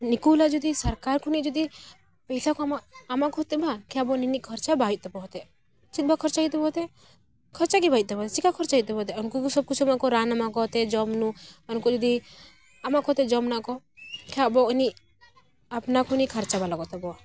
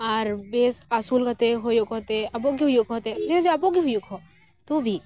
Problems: none marked